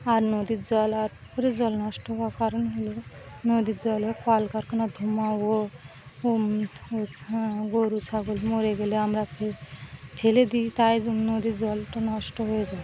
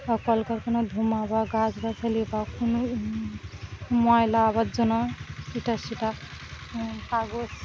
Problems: none marked